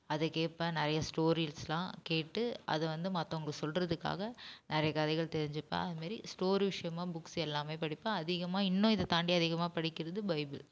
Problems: constant background noise, low volume